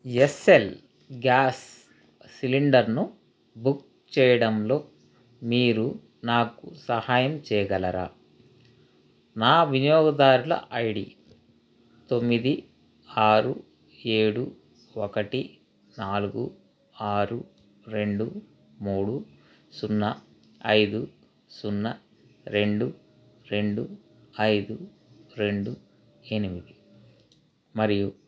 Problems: constant background noise